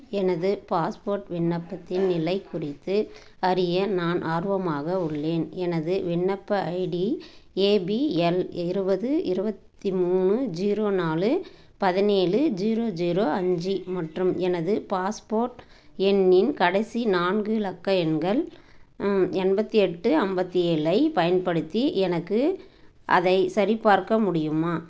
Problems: background sounds at intervals